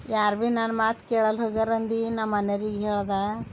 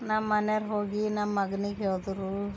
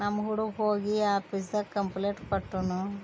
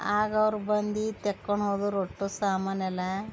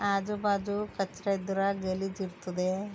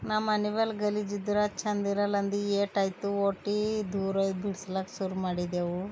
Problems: background conversations at intervals